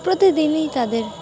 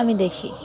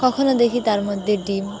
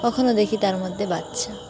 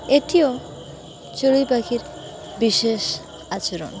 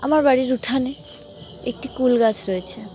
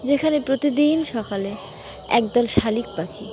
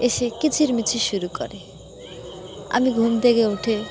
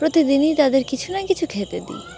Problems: constant background noise, continuous background conversations